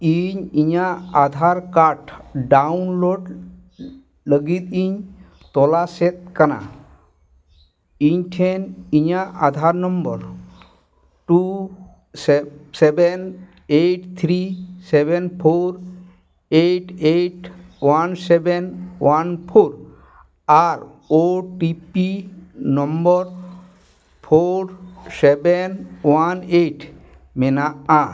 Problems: none marked